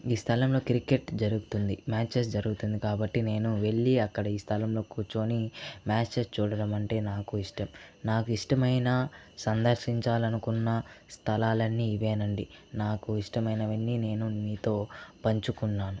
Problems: none marked